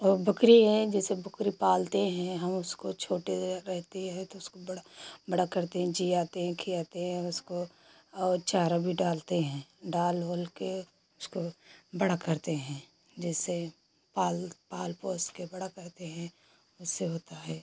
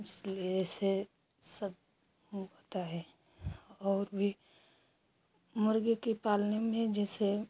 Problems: constant background noise